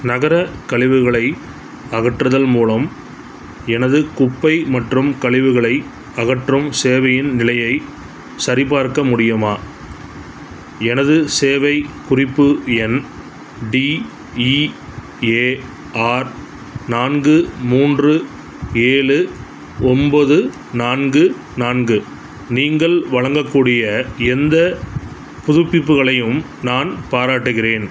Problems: none marked